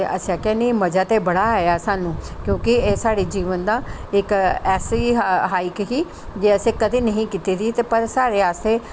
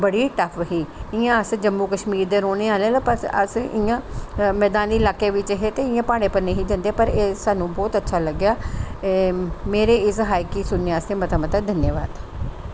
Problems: constant background noise